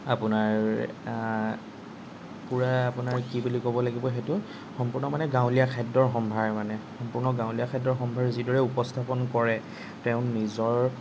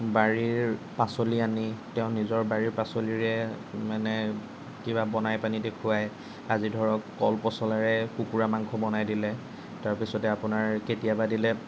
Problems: none marked